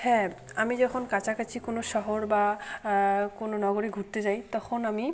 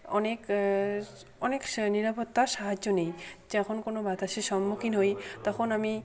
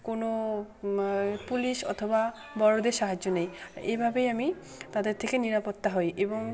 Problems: constant background noise